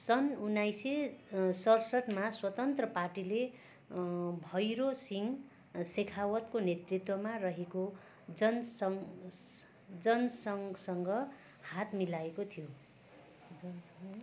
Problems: none marked